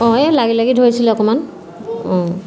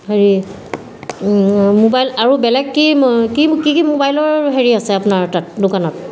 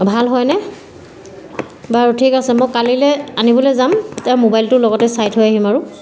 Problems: none marked